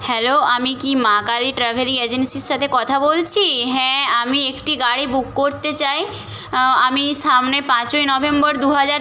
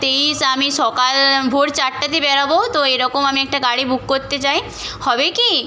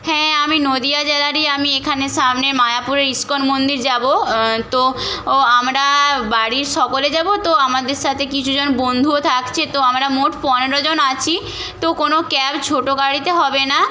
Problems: background conversations at intervals